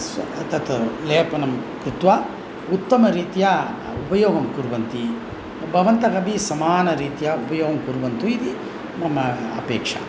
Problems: constant background noise